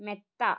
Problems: low volume